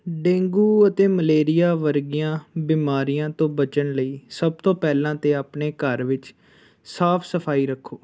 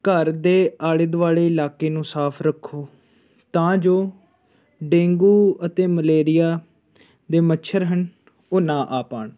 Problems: background conversations at intervals